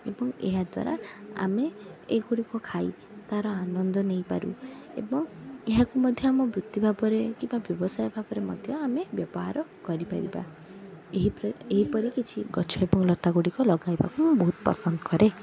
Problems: continuous background conversations